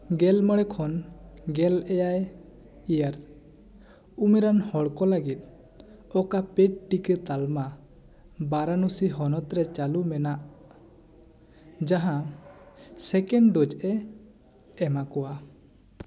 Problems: none marked